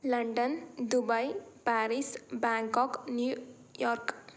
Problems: none marked